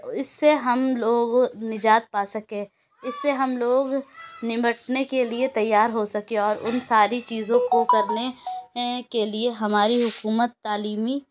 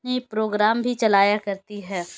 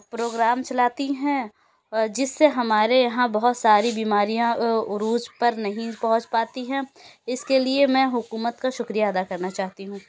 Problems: background sounds at intervals, background conversations at intervals